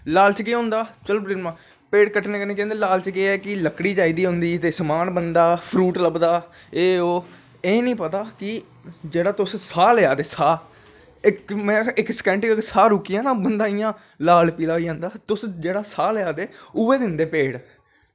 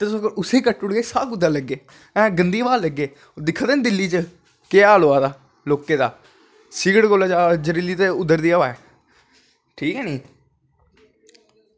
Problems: constant background noise